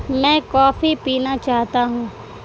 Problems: constant background noise